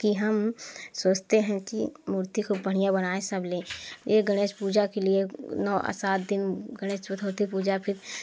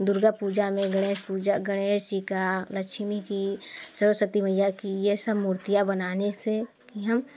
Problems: constant background noise